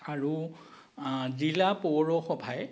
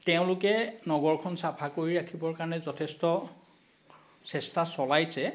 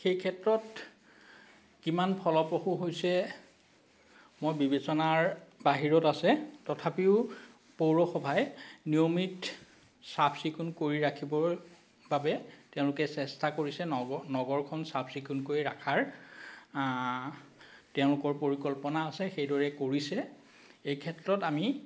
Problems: none marked